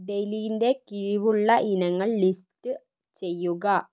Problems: low volume